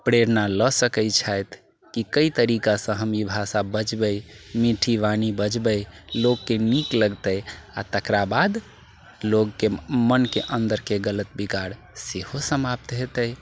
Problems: background sounds at intervals